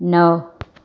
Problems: none marked